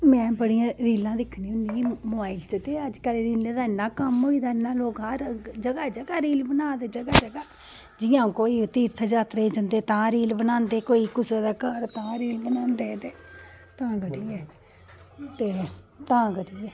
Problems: background conversations at intervals